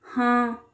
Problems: constant background noise